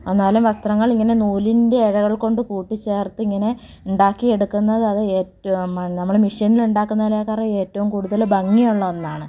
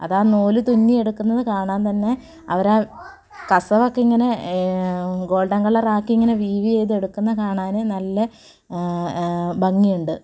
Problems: none marked